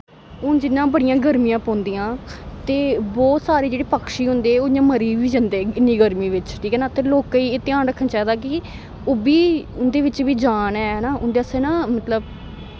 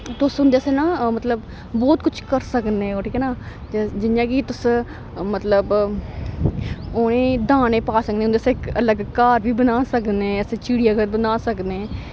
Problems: constant background noise